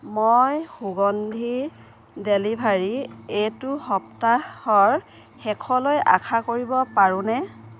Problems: none marked